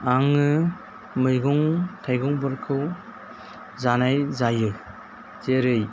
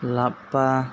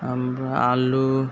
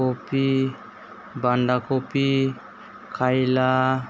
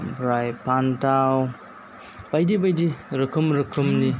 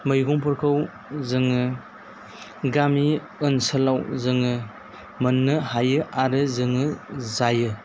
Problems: constant background noise